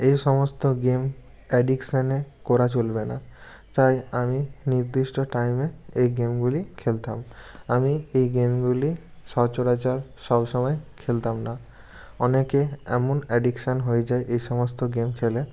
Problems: constant background noise